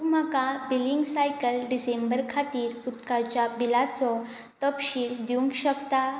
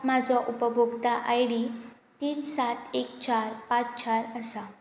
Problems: background sounds at intervals